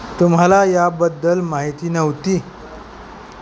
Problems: constant background noise